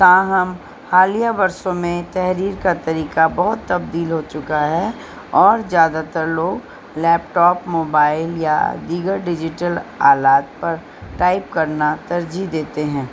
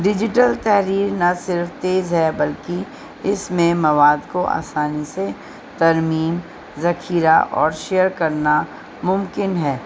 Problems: constant background noise, low volume